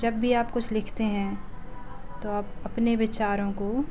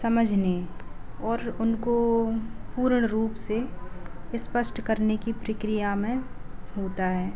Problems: none marked